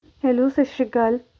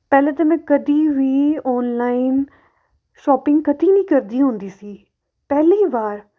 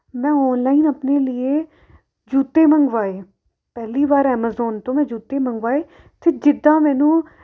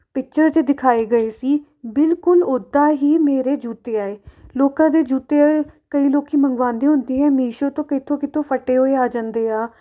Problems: none marked